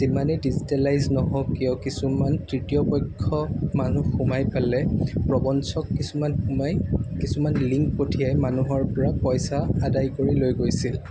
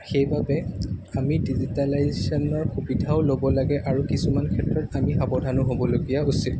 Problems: constant background noise